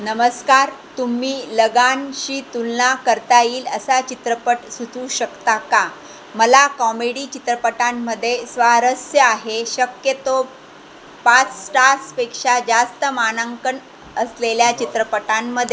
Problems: constant background noise, background conversations at intervals